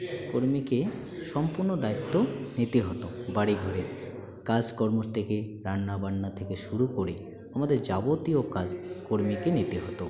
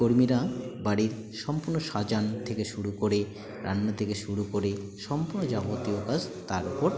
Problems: constant background noise, continuous background conversations